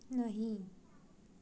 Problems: low volume